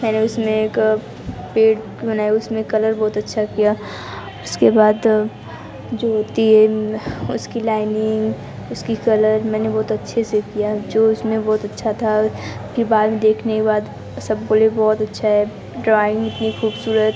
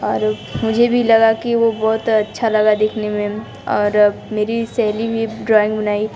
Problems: constant background noise, background conversations at intervals